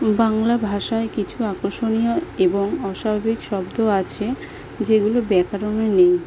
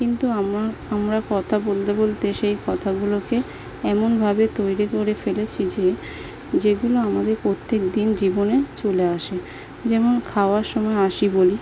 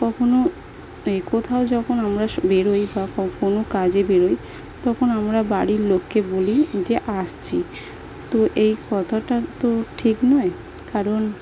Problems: constant background noise